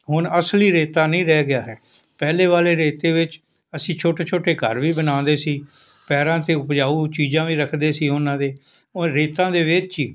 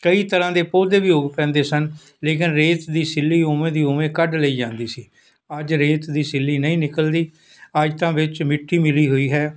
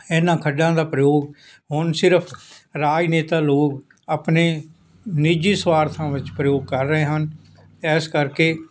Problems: none marked